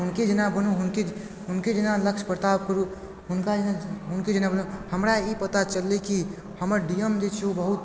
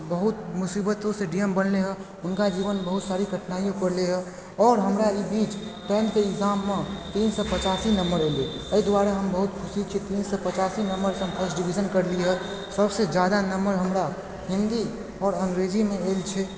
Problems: constant background noise